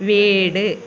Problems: none marked